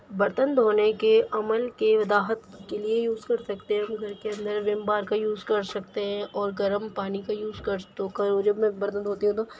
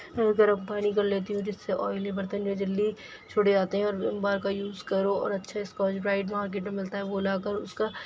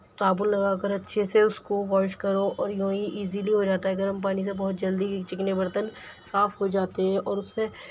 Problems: none marked